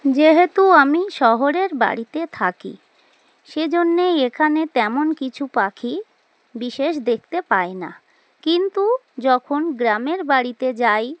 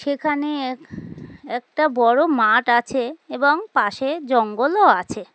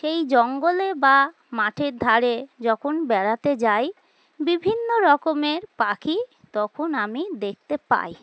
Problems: constant background noise